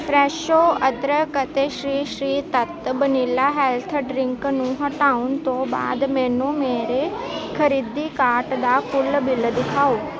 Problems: constant background noise, continuous background conversations